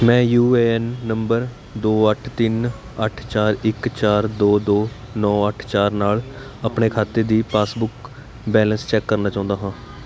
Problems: constant background noise